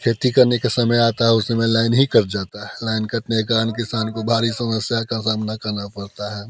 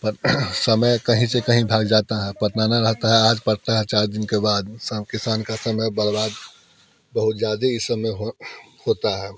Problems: constant background noise, continuous background conversations